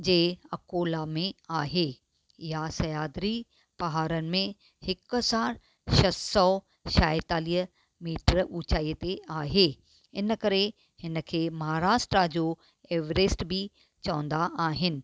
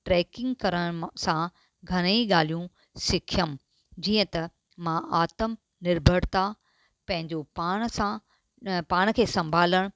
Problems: none marked